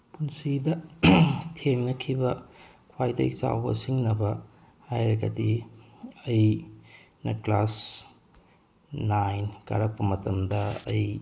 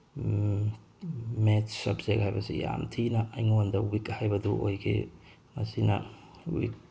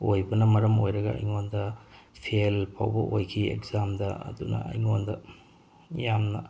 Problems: none marked